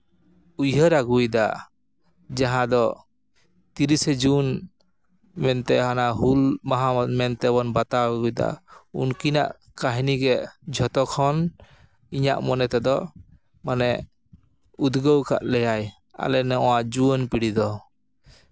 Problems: background sounds at intervals